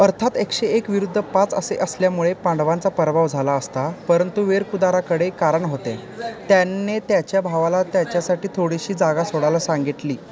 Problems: background sounds at intervals